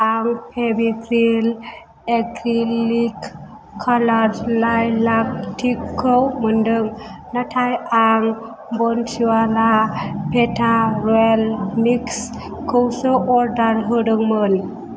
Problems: none marked